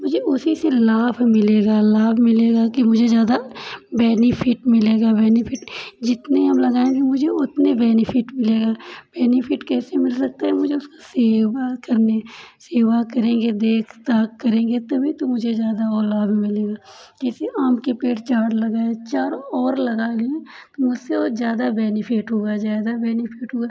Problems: none marked